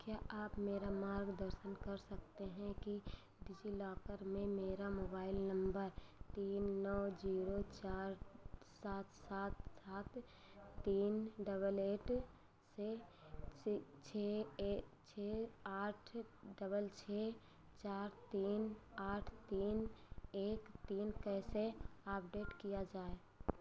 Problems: none marked